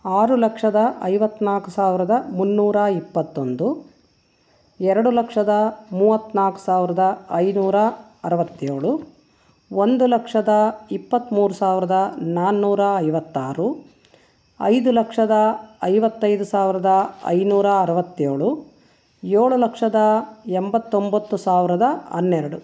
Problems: none marked